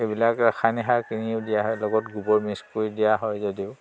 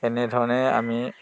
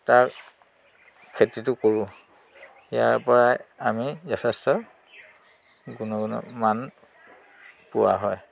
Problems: constant background noise